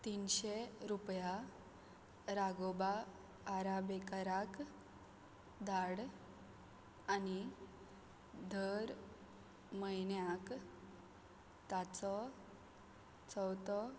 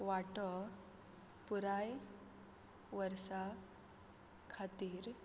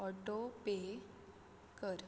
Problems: none marked